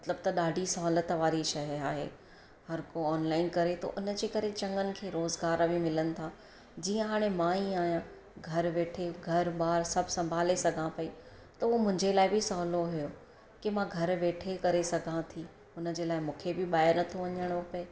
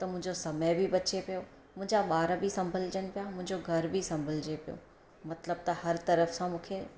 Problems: constant background noise